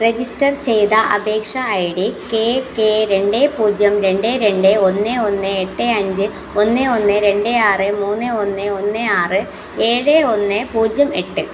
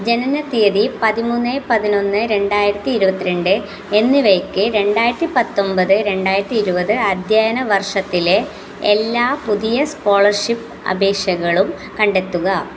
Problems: none marked